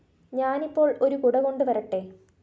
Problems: none marked